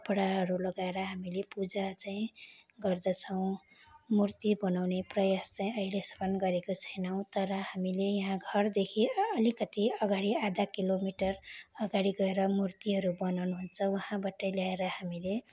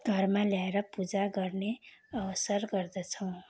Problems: constant background noise